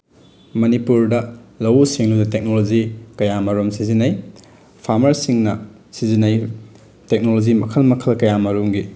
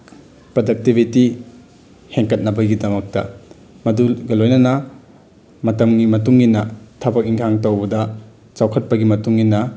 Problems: background sounds at intervals